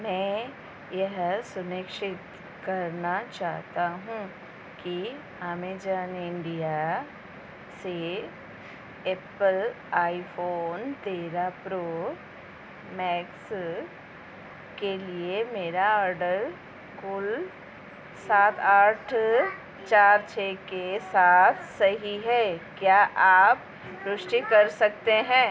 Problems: constant background noise